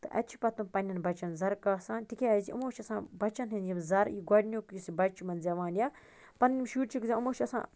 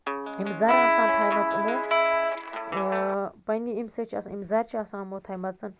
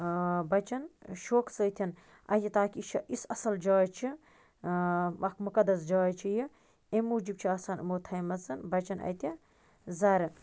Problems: constant background noise